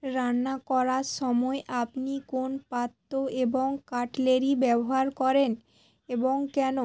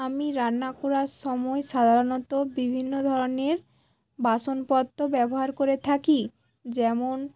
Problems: background sounds at intervals, background conversations at intervals